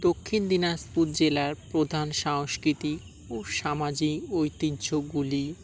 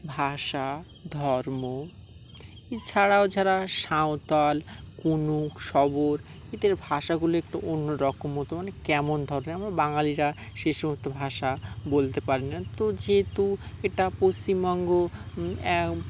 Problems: background sounds at intervals